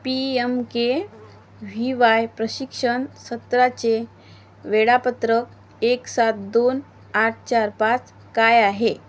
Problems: none marked